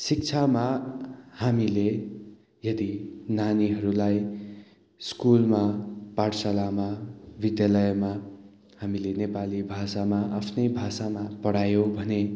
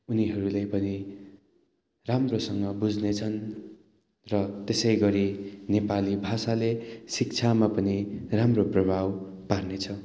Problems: constant background noise